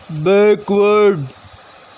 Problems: constant background noise